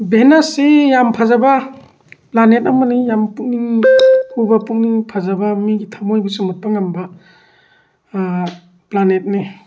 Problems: background sounds at intervals